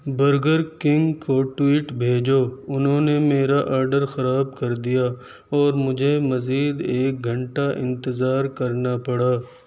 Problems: none marked